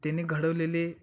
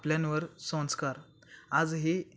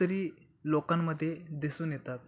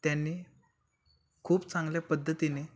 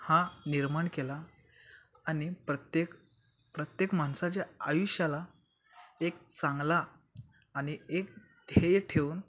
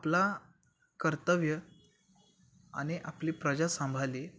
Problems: none marked